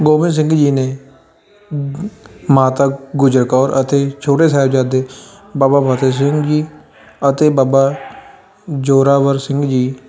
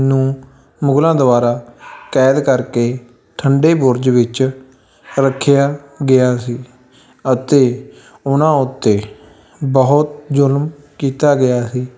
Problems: constant background noise, continuous background conversations